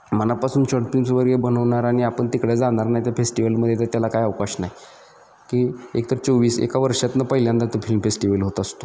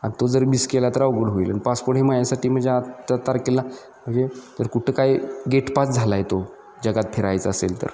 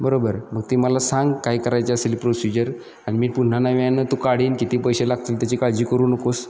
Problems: constant background noise, background conversations at intervals